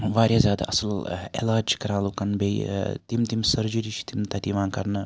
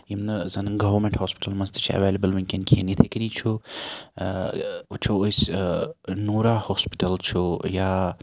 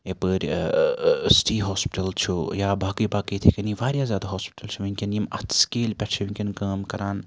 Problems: constant background noise